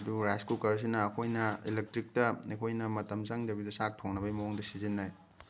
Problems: background sounds at intervals